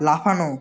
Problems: continuous background conversations